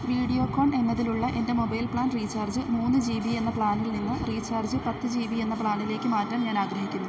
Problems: none marked